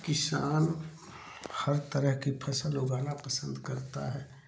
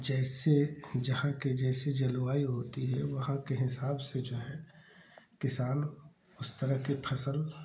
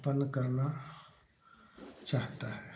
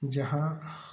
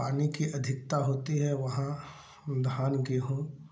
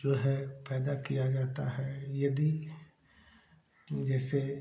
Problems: none marked